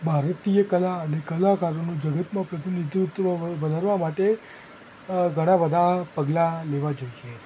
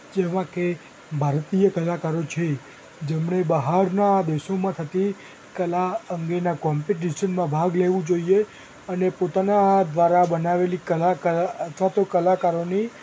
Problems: constant background noise